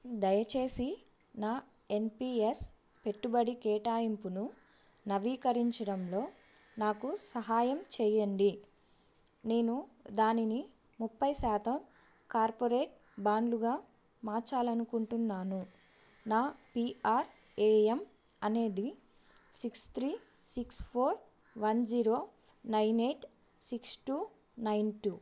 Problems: background sounds at intervals